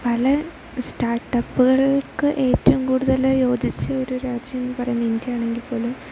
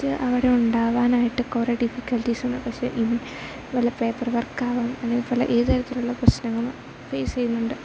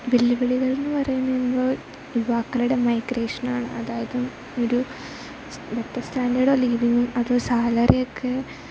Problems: constant background noise